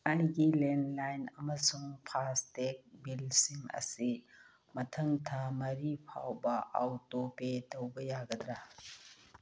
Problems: none marked